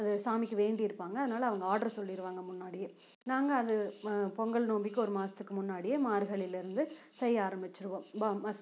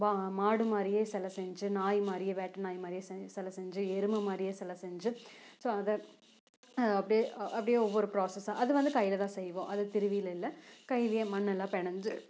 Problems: background sounds at intervals, low volume